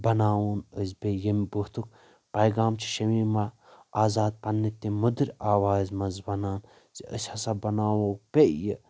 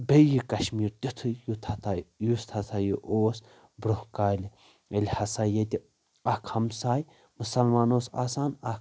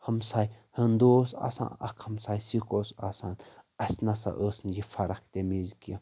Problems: constant background noise